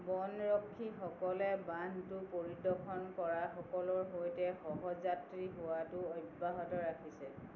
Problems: constant background noise